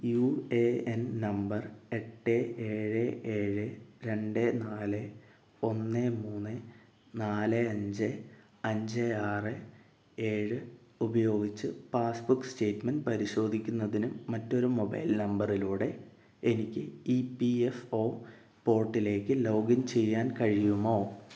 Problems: low volume